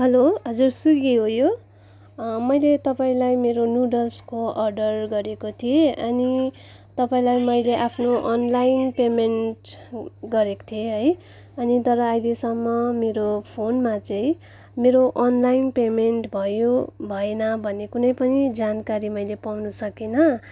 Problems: background conversations at intervals